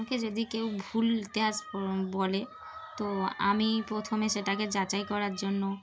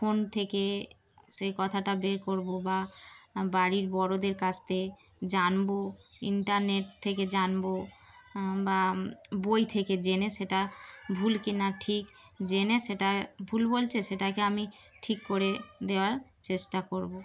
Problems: constant background noise, continuous background conversations